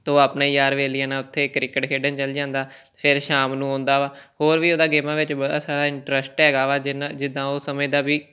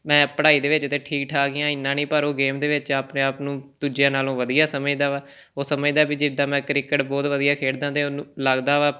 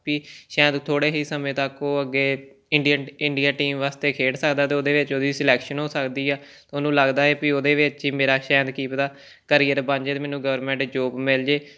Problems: none marked